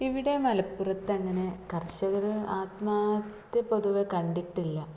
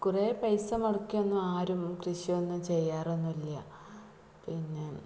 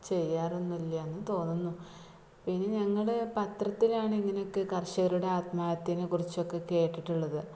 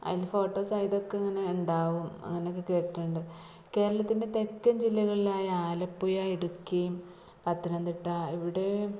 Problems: low volume